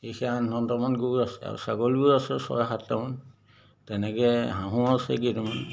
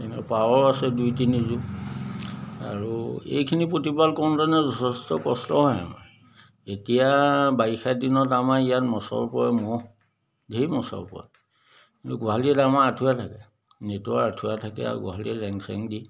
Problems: none marked